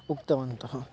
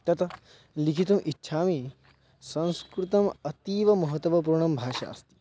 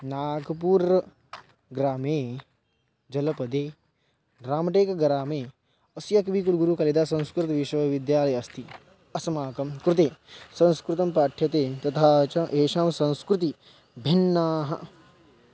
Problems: constant background noise